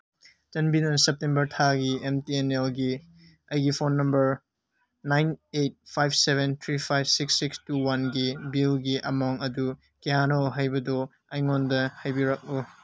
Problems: none marked